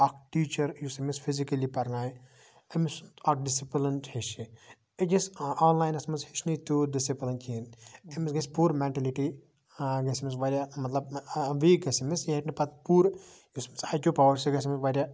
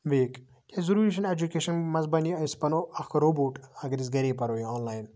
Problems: background conversations at intervals